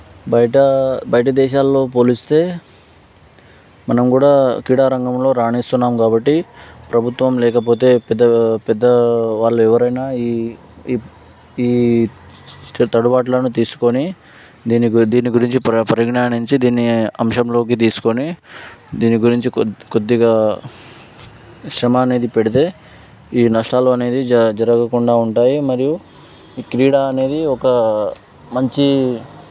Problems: background sounds at intervals